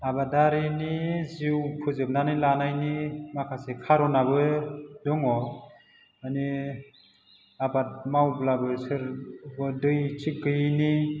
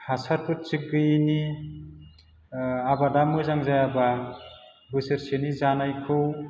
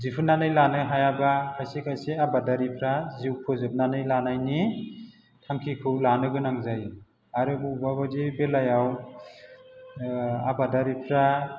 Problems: background sounds at intervals